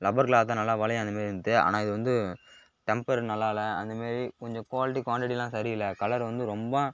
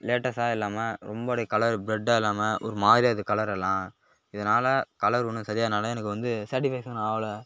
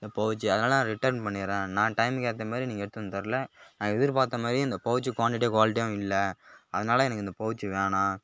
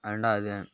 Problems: background sounds at intervals